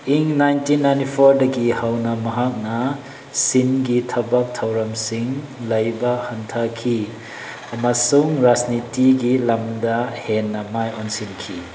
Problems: background sounds at intervals